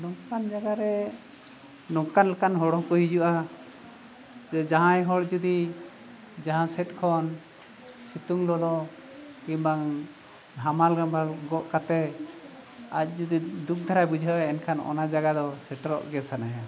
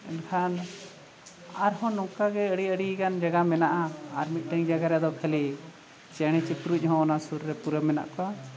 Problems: none marked